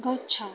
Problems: constant background noise